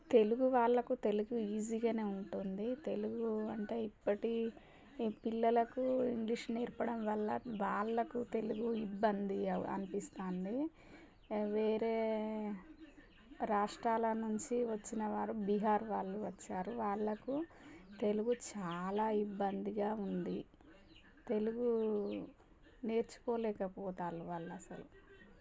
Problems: background sounds at intervals